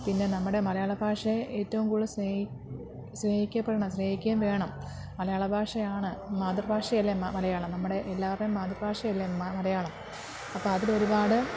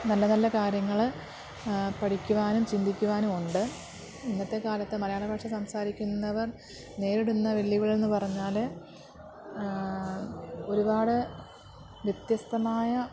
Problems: constant background noise, low volume